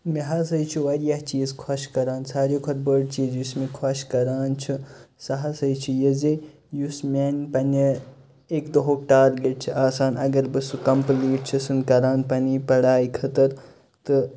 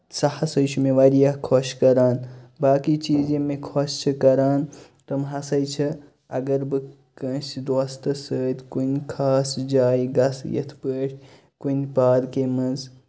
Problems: constant background noise